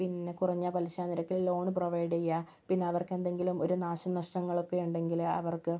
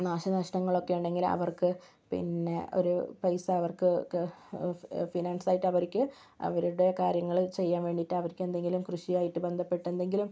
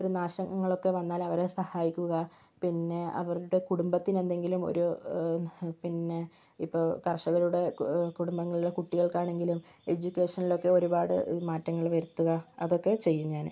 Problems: none marked